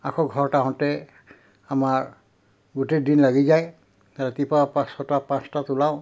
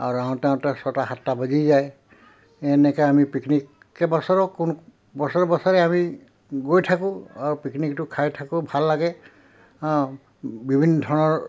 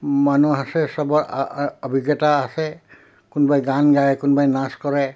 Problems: background sounds at intervals